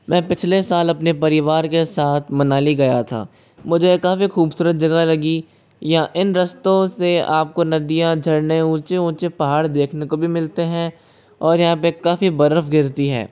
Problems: constant background noise